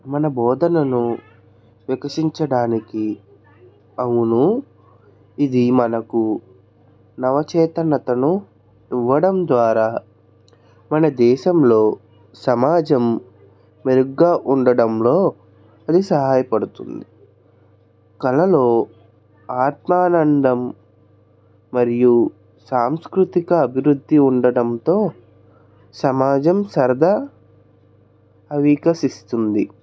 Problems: continuous background conversations